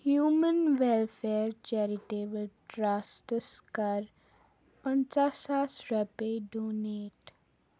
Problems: background sounds at intervals, low volume